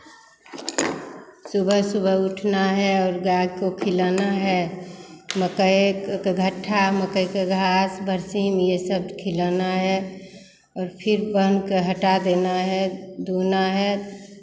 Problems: background sounds at intervals